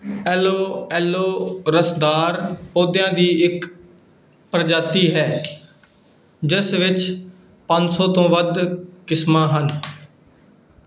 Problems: background sounds at intervals